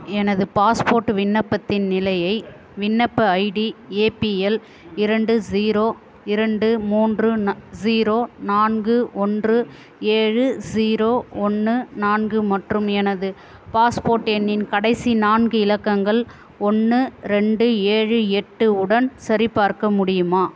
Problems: continuous background conversations